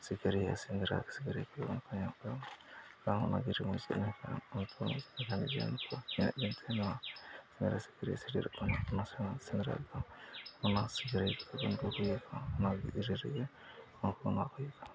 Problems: low volume